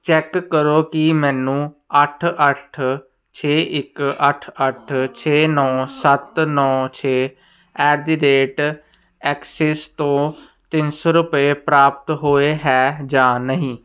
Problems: none marked